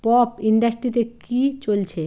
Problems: constant background noise